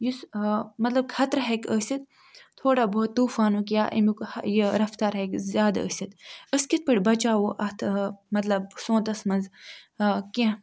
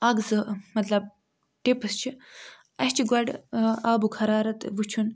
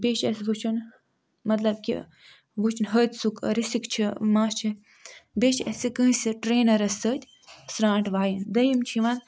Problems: background sounds at intervals